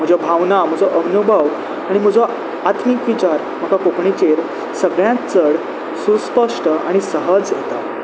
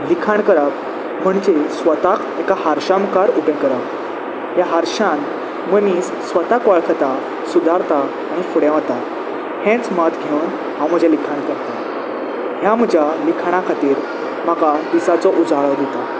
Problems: constant background noise